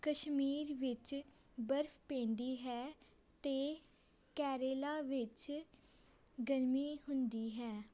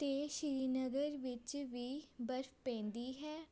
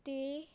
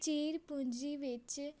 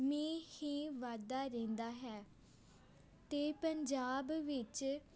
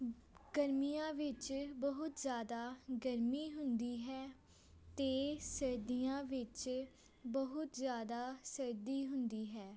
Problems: background sounds at intervals, background conversations at intervals